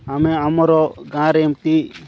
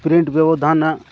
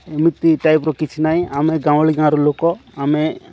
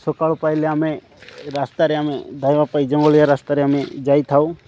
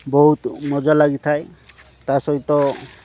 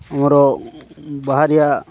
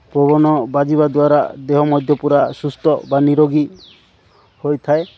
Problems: none marked